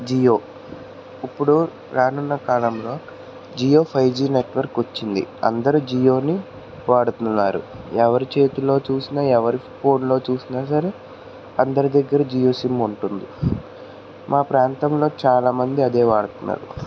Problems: constant background noise